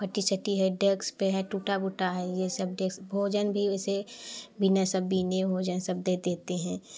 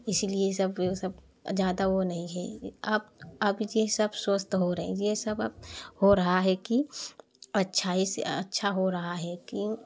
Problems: none marked